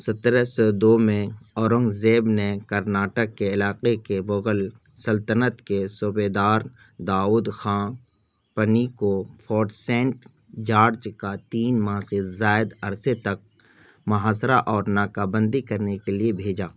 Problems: none marked